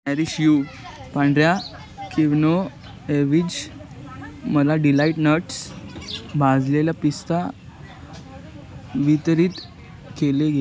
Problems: constant background noise, background conversations at intervals